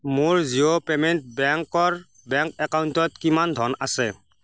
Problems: none marked